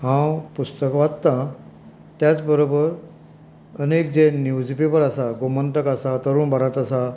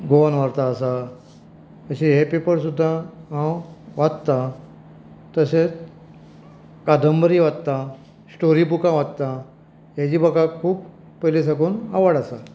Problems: background conversations at intervals